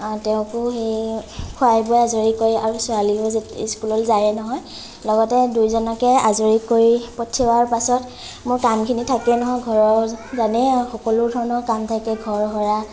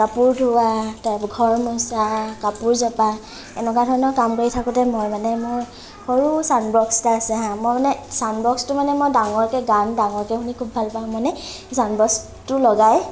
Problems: none marked